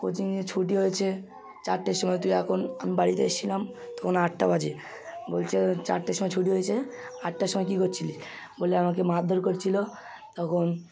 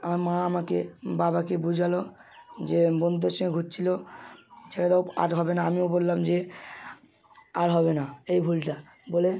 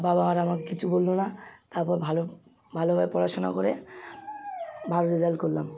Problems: none marked